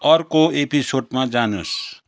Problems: none marked